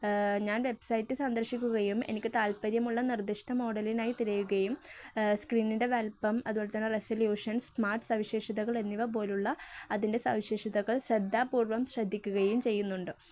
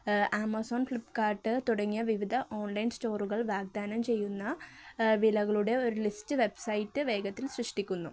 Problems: none marked